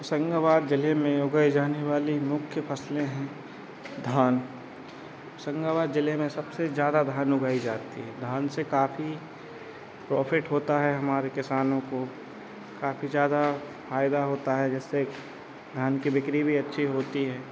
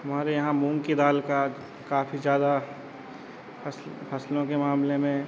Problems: background sounds at intervals